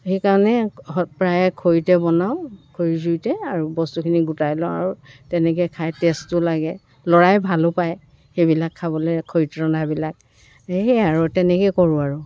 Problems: constant background noise, continuous background conversations